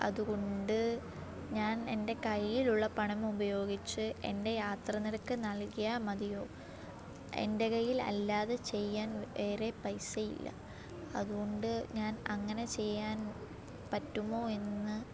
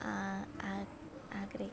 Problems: low volume